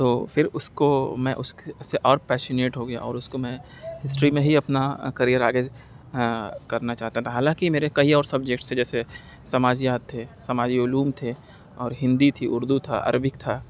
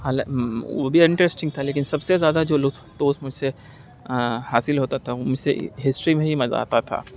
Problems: constant background noise